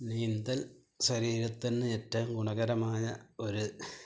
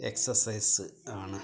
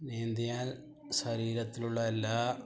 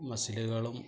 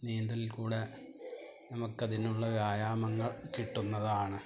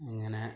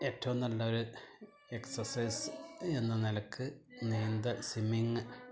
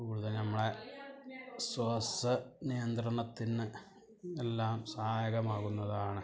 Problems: background conversations at intervals, low volume